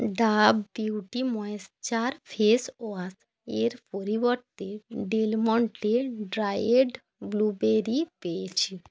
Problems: none marked